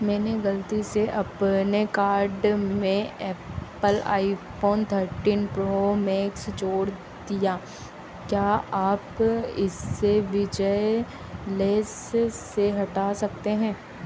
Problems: constant background noise